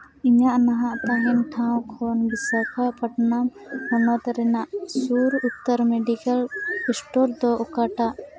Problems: constant background noise